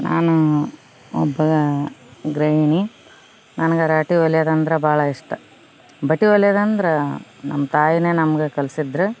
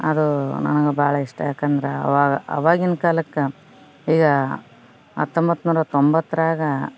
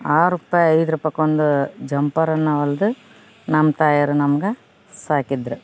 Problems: none marked